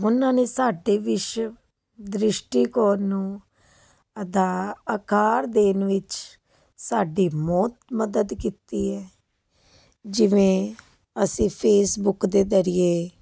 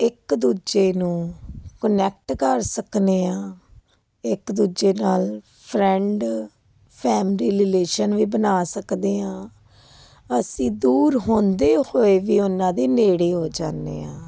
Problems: constant background noise